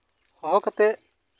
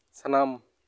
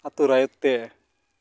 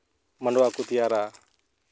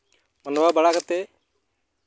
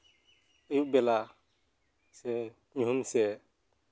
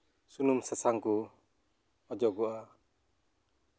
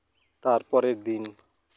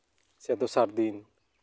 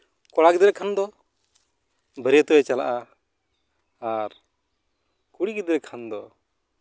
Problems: background sounds at intervals